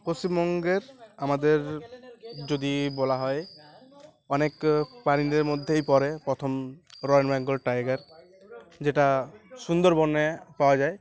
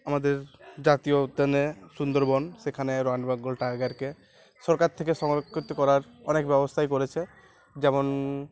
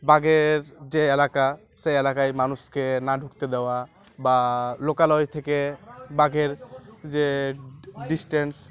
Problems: constant background noise, continuous background conversations